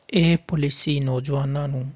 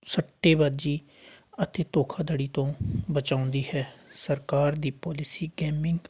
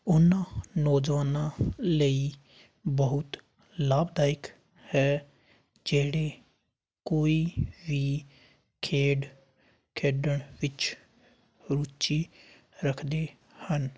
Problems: none marked